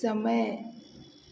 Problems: none marked